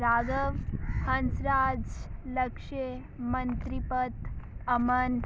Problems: constant background noise